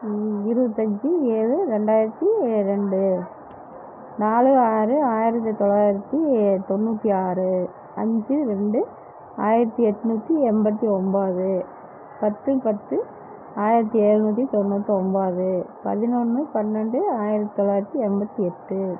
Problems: none marked